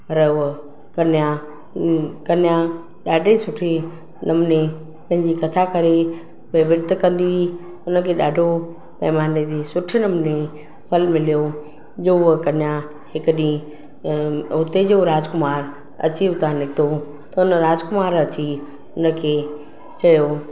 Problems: constant background noise, echo